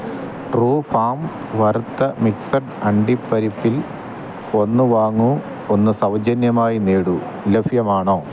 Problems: constant background noise